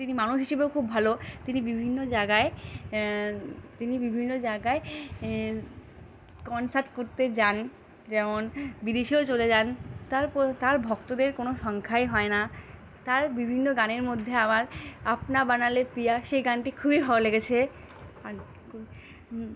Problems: none marked